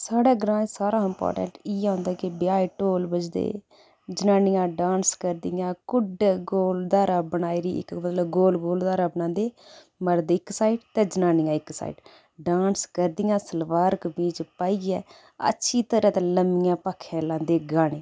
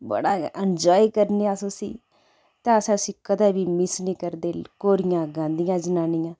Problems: background sounds at intervals